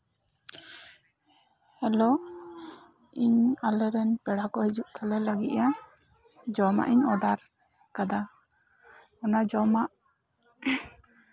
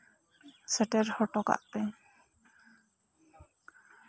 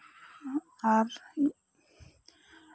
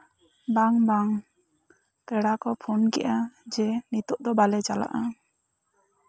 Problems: low volume